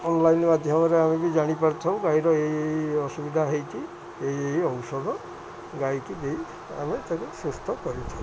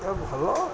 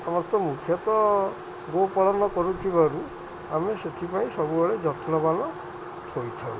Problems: constant background noise, continuous background conversations